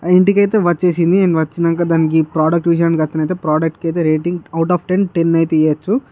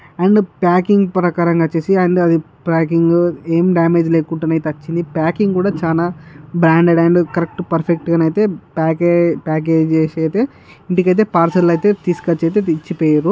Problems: none marked